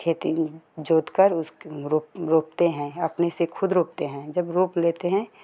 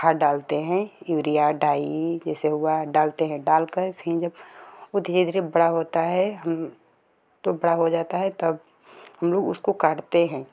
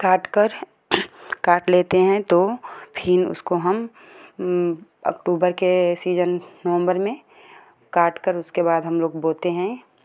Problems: none marked